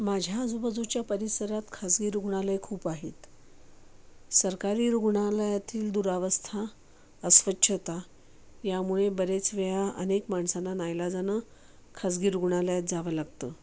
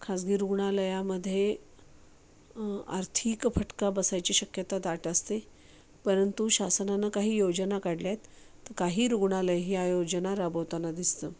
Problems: constant background noise